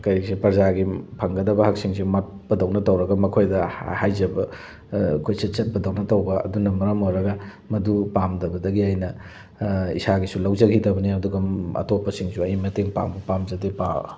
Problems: none marked